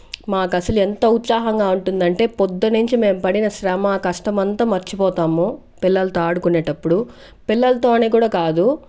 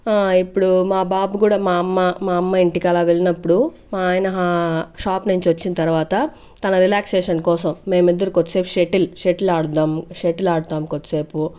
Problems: background sounds at intervals